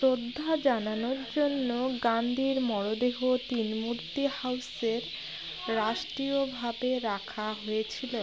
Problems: constant background noise, background conversations at intervals